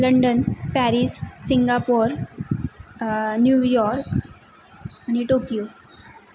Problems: background sounds at intervals